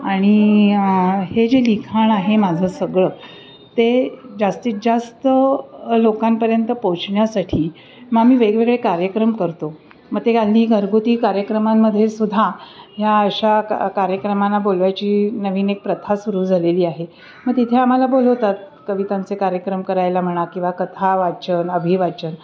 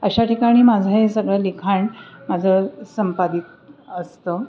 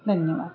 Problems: background sounds at intervals, background conversations at intervals